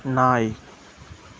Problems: none marked